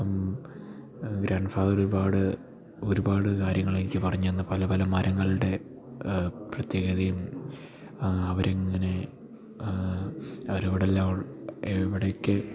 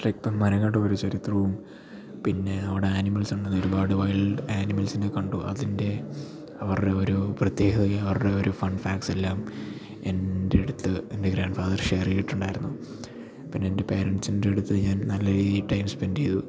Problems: none marked